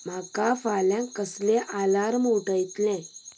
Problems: background sounds at intervals